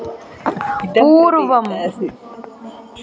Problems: background sounds at intervals